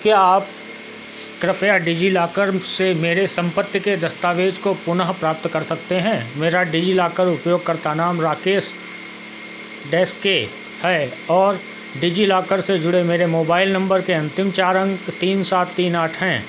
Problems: constant background noise